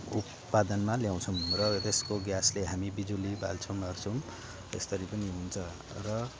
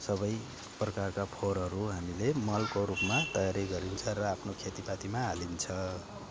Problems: none marked